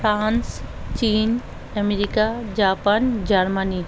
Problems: constant background noise